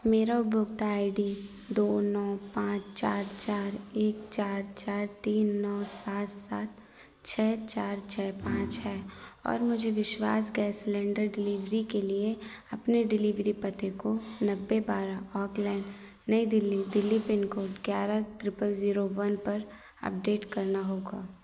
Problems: background sounds at intervals